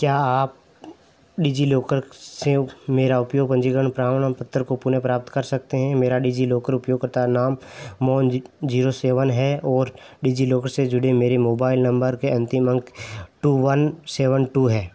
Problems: none marked